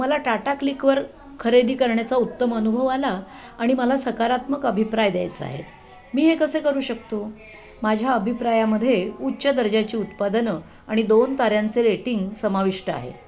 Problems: constant background noise, continuous background conversations